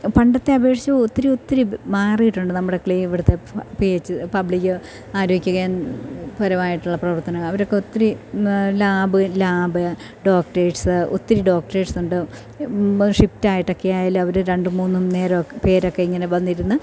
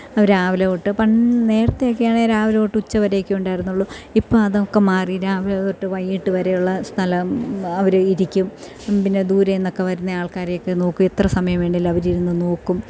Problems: none marked